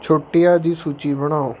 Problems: background sounds at intervals